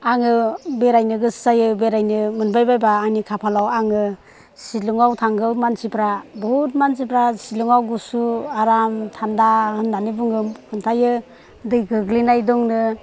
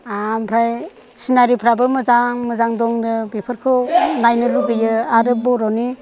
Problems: constant background noise